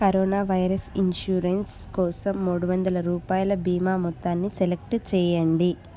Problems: constant background noise